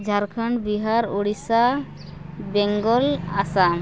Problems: none marked